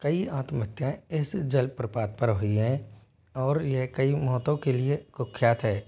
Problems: background sounds at intervals